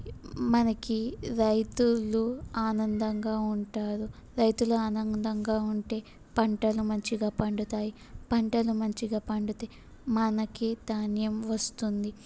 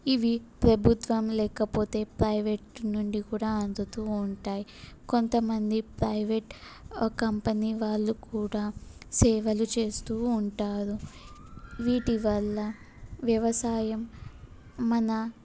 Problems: none marked